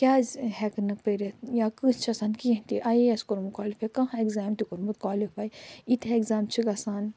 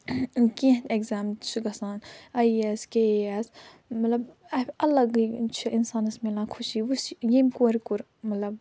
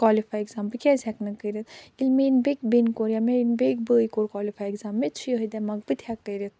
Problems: none marked